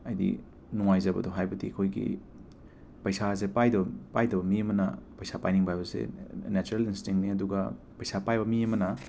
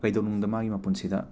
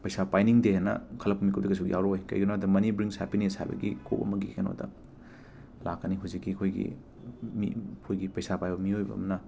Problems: constant background noise